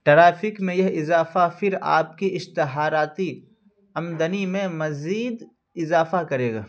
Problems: none marked